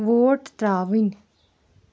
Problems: background sounds at intervals